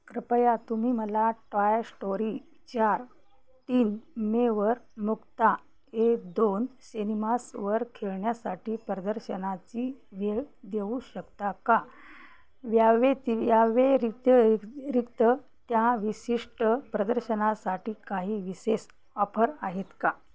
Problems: none marked